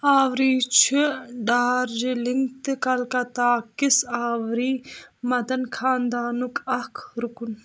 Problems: background sounds at intervals